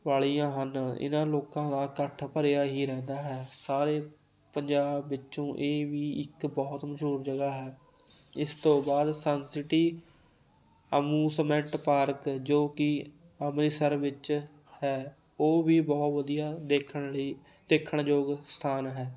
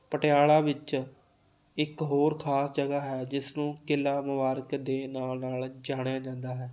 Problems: constant background noise